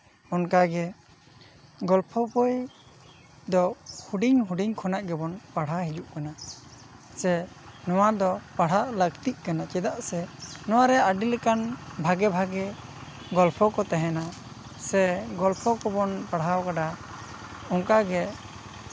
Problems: background sounds at intervals